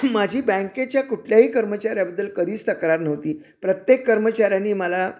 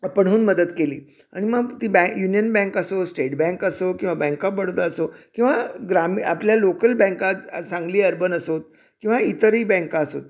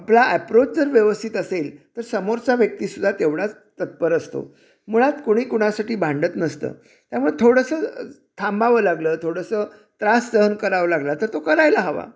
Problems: none marked